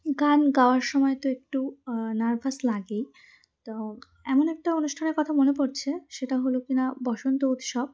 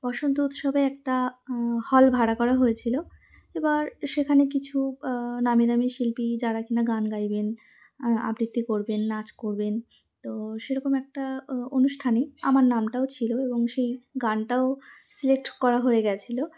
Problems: none marked